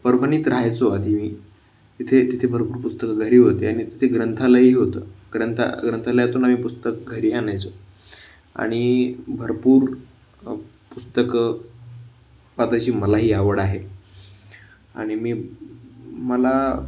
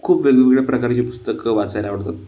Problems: background sounds at intervals